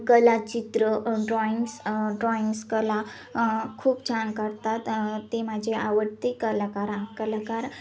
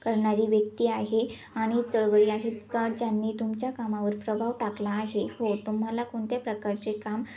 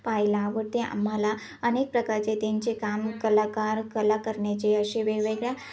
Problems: background sounds at intervals, continuous background conversations